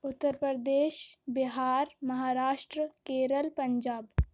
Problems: constant background noise